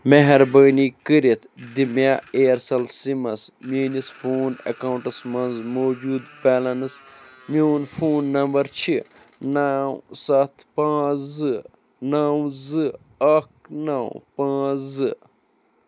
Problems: constant background noise